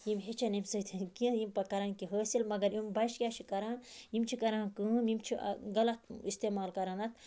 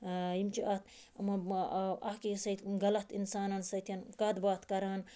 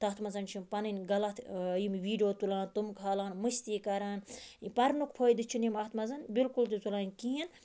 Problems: constant background noise